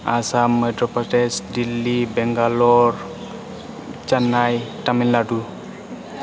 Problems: constant background noise